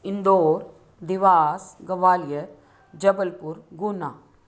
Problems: none marked